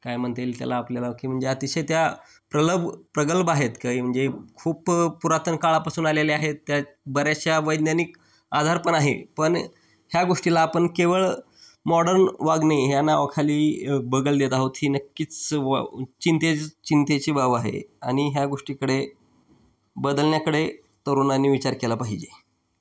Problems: background sounds at intervals